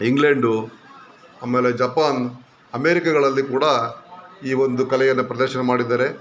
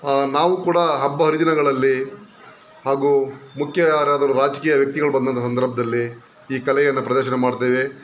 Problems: background sounds at intervals